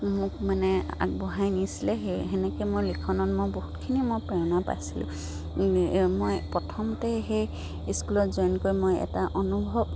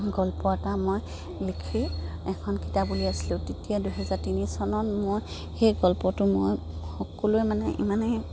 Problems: background sounds at intervals